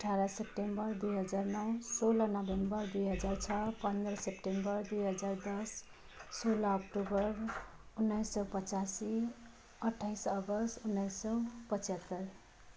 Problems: none marked